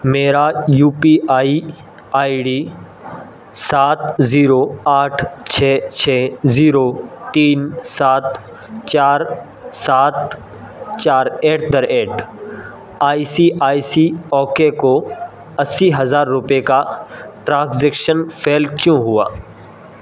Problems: constant background noise